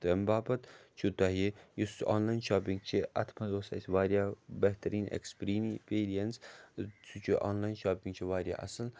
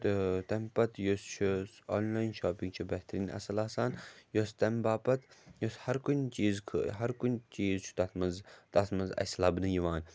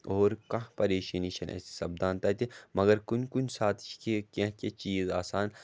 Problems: none marked